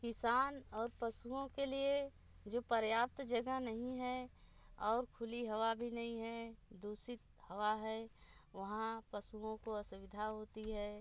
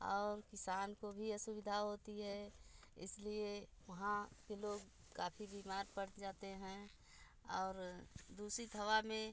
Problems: constant background noise, low volume